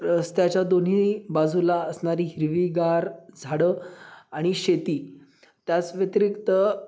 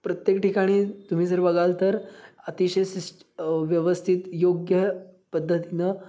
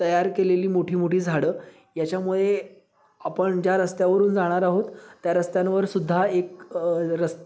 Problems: background sounds at intervals, background conversations at intervals